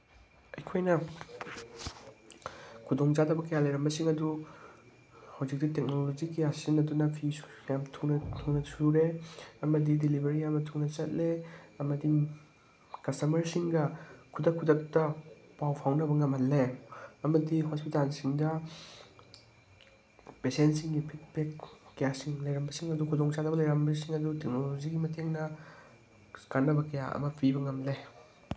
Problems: none marked